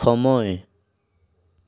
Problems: none marked